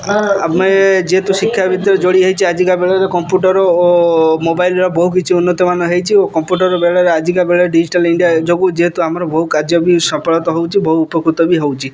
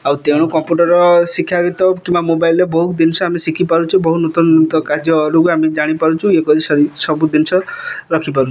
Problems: background sounds at intervals